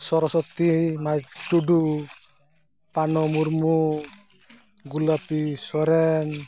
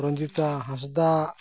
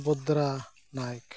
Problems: background sounds at intervals, background conversations at intervals